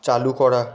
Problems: continuous background conversations